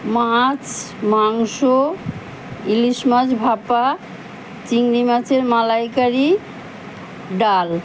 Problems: constant background noise